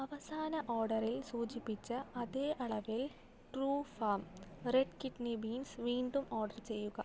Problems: none marked